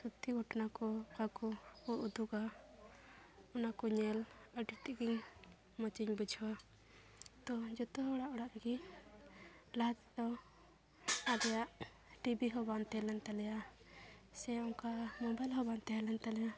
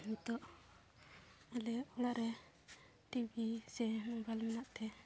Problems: constant background noise, background conversations at intervals